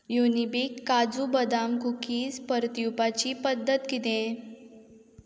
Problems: constant background noise